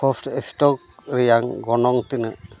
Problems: constant background noise